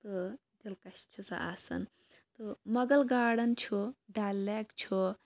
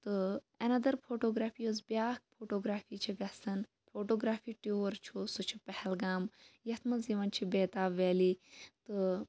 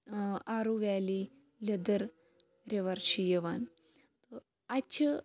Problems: background sounds at intervals